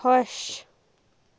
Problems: background sounds at intervals